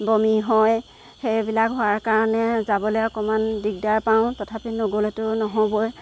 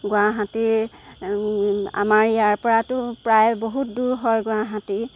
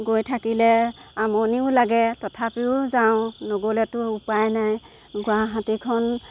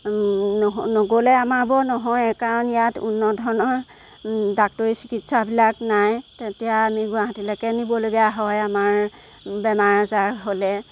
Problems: background sounds at intervals